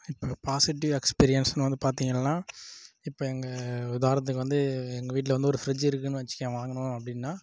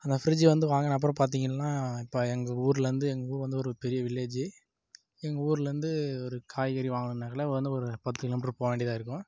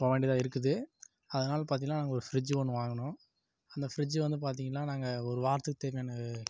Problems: low volume